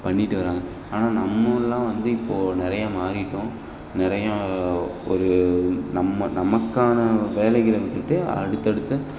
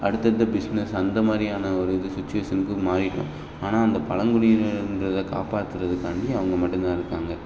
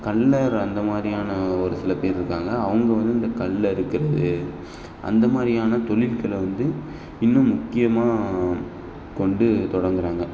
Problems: background sounds at intervals, background conversations at intervals